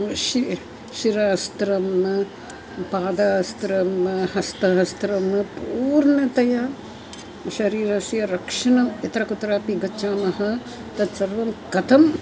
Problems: constant background noise, continuous background conversations